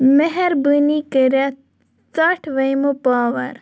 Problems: none marked